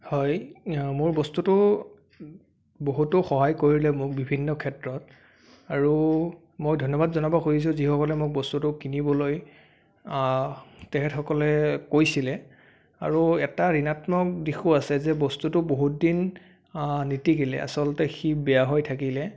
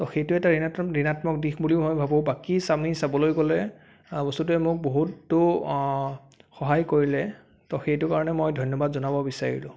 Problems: background sounds at intervals